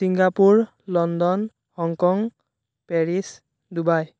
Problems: none marked